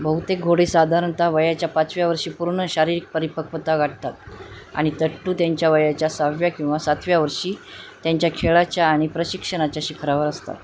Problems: constant background noise